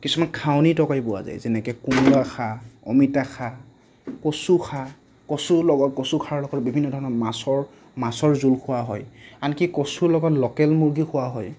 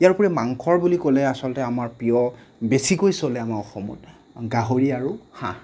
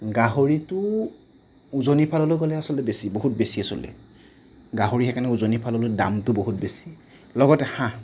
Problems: none marked